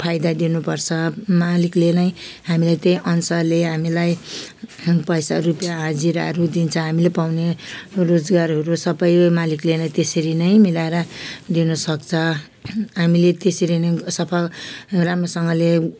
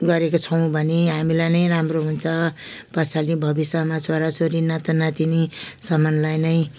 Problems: background sounds at intervals